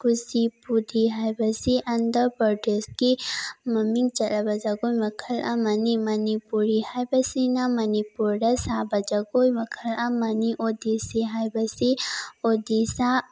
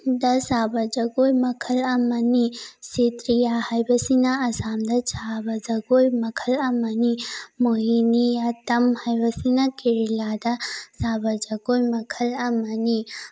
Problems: none marked